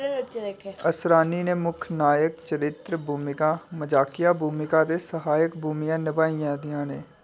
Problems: background sounds at intervals